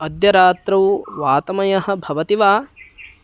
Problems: background sounds at intervals